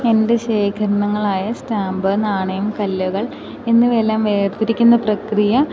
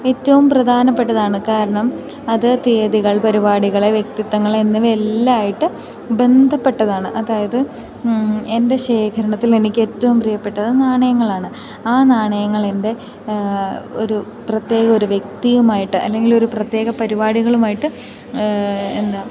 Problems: background sounds at intervals